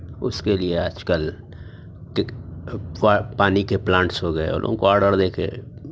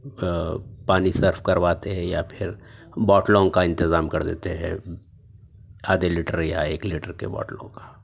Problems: none marked